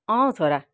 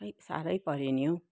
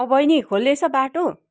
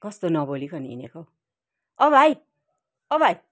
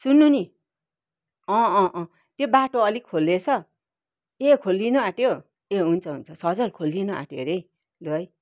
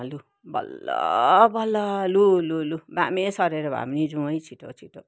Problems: none marked